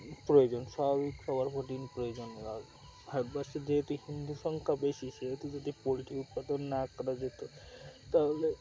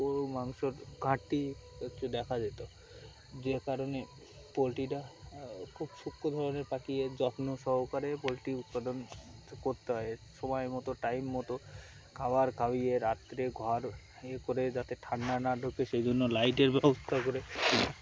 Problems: constant background noise, background conversations at intervals